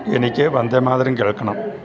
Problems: background sounds at intervals